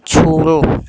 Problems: constant background noise